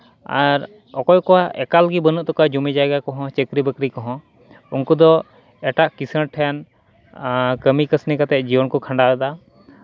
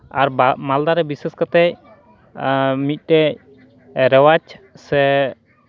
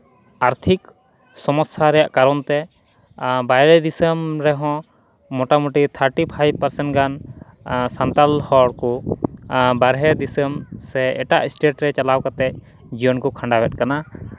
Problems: background sounds at intervals, background conversations at intervals